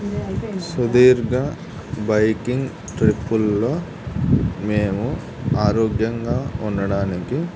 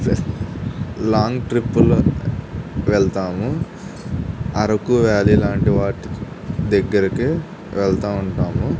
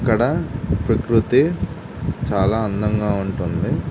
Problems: none marked